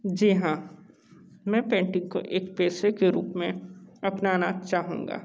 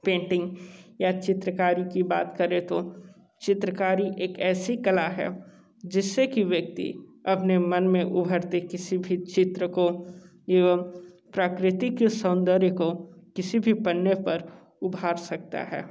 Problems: constant background noise